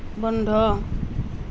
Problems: none marked